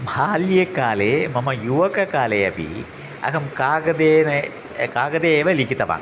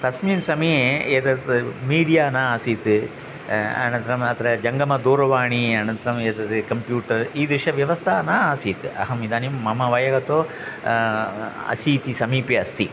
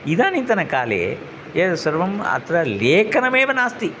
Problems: constant background noise